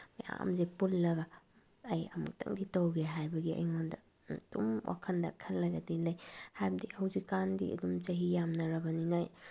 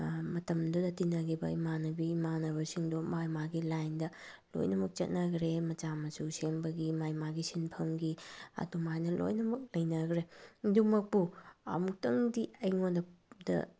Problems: none marked